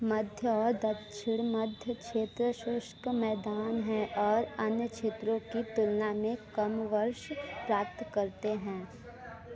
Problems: background conversations at intervals